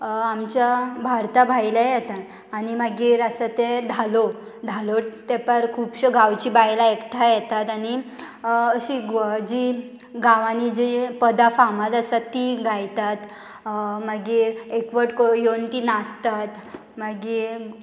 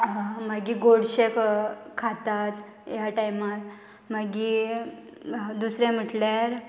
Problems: none marked